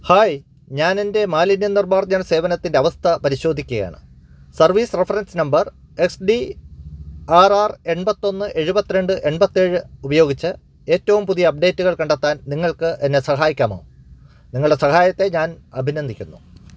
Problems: none marked